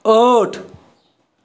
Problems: none marked